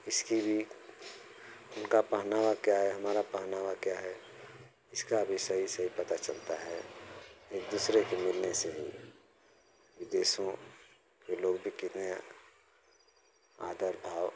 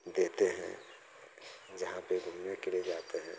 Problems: none marked